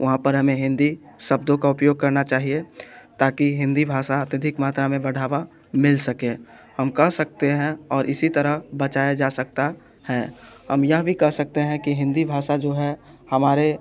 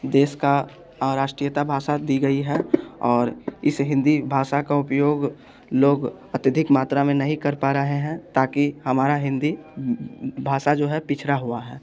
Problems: background sounds at intervals